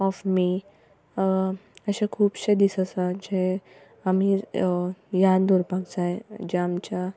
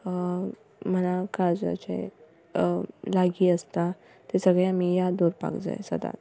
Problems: background sounds at intervals